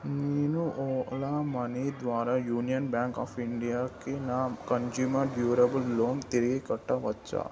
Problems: none marked